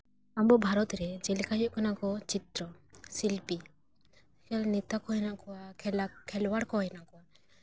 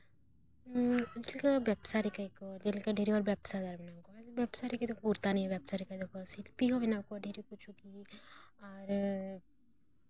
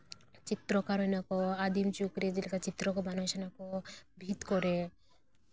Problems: background sounds at intervals